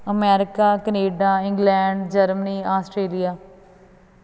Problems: constant background noise